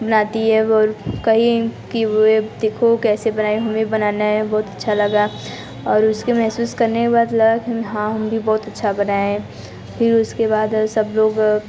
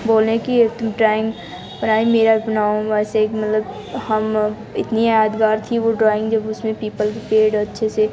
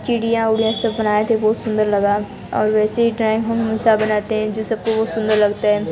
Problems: constant background noise, background conversations at intervals